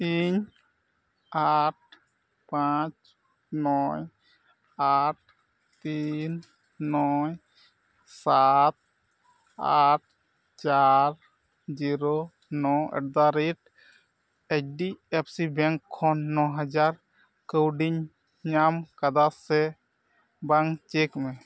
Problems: none marked